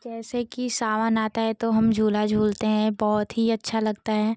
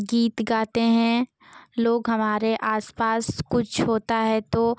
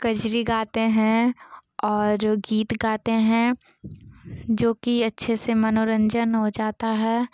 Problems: none marked